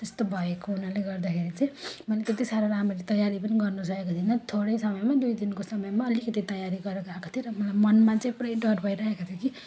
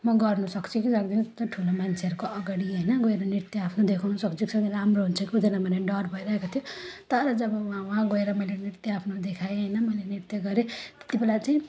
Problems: constant background noise